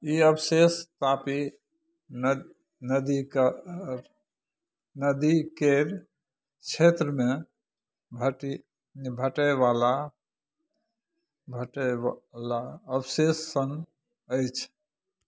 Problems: none marked